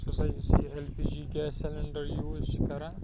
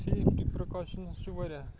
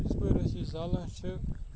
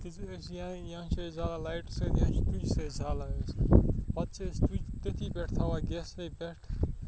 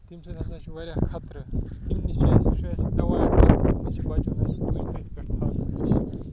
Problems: constant background noise, low volume